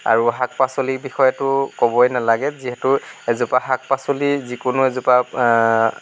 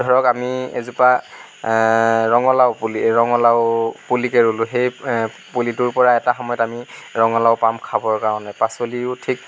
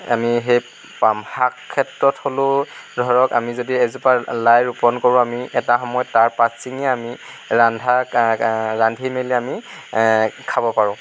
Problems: none marked